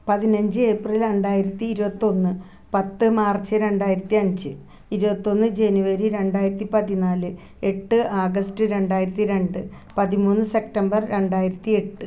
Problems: none marked